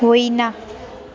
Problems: continuous background conversations